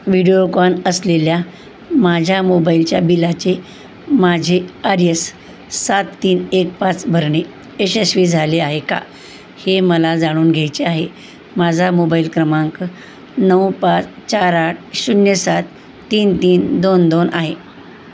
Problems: constant background noise